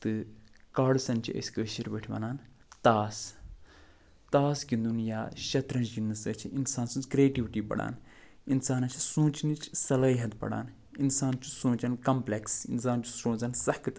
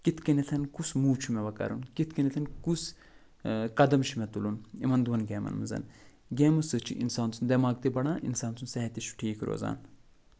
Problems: none marked